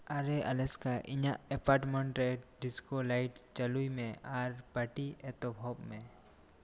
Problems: constant background noise